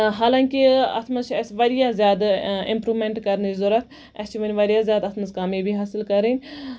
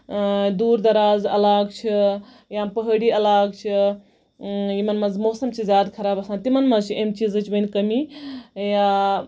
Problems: none marked